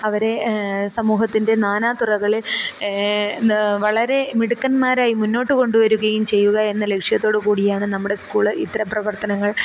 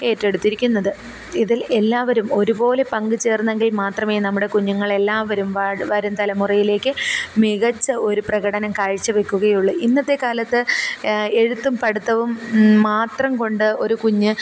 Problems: none marked